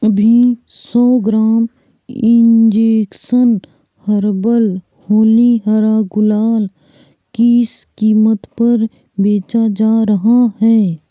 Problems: constant background noise